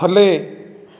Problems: none marked